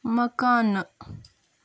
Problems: background sounds at intervals